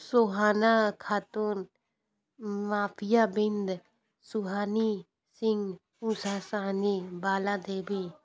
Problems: constant background noise, background conversations at intervals